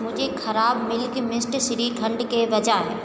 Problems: constant background noise, echo